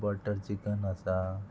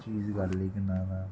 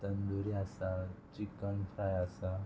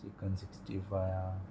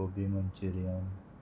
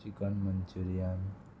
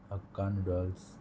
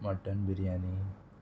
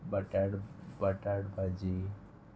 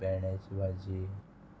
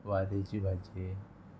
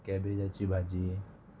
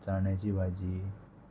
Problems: constant background noise, continuous background conversations